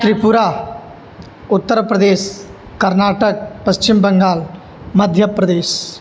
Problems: background sounds at intervals